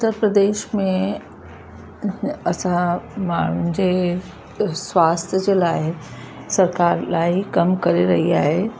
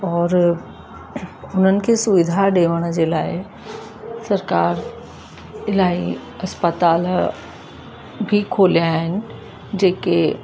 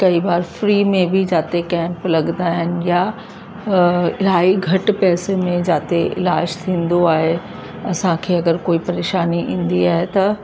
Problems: constant background noise